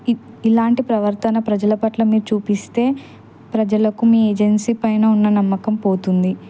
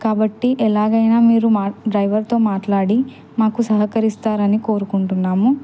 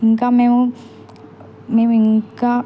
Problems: background sounds at intervals